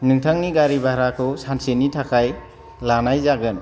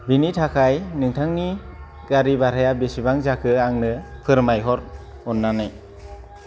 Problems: none marked